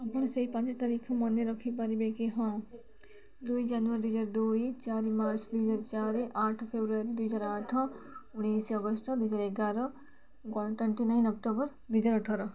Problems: constant background noise, continuous background conversations